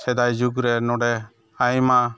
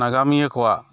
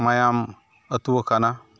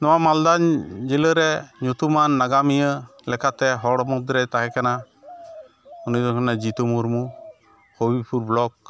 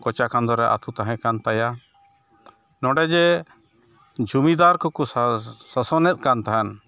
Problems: background sounds at intervals